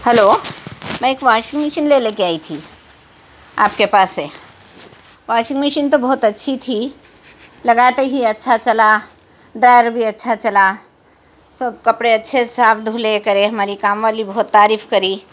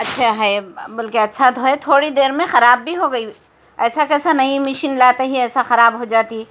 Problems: constant background noise